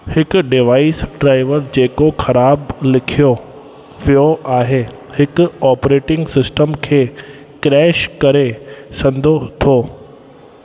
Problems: constant background noise, echo